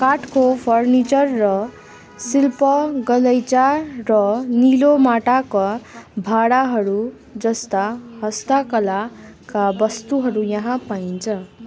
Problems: constant background noise, continuous background conversations